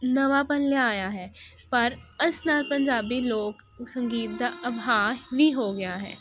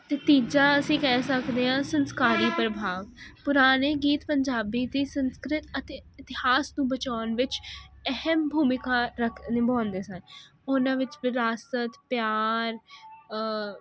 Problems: constant background noise